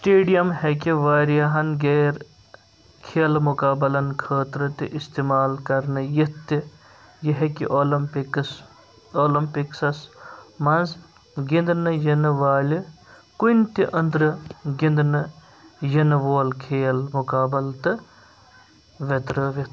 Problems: background sounds at intervals